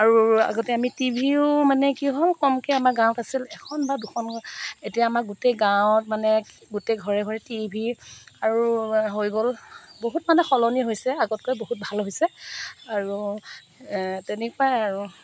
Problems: none marked